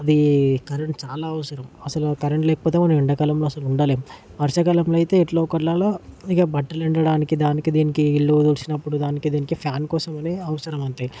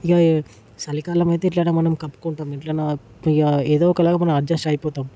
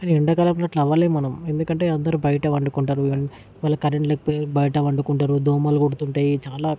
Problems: none marked